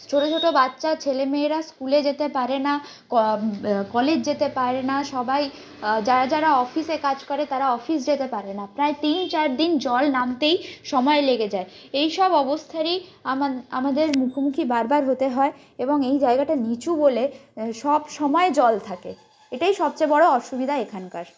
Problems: constant background noise